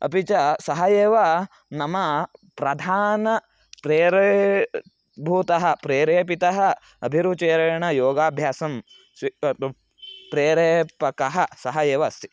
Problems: none marked